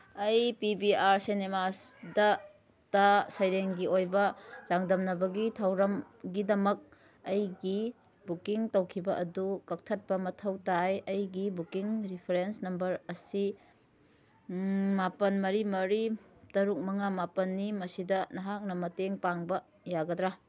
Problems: none marked